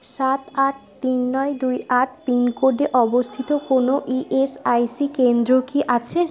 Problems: constant background noise